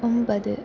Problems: constant background noise, low volume